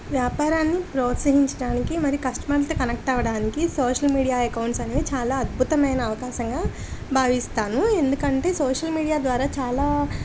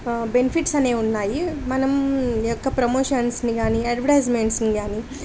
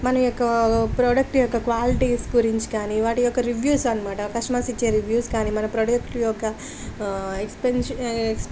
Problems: constant background noise